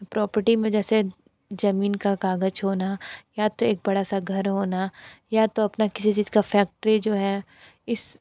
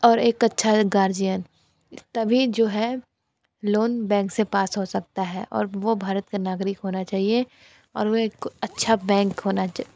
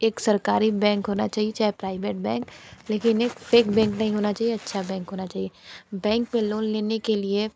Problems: background sounds at intervals